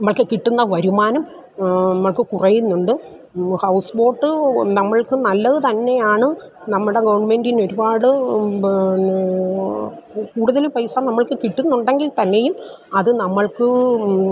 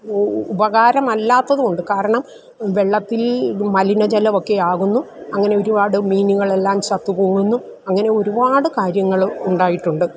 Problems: none marked